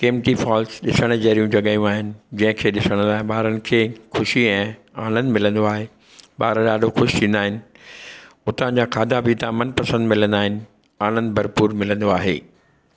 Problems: none marked